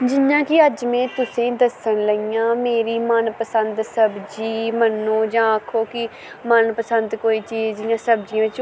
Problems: constant background noise